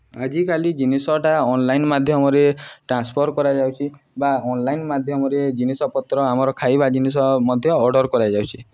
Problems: none marked